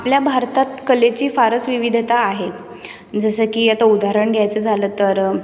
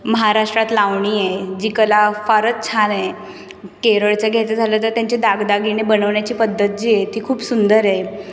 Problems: background sounds at intervals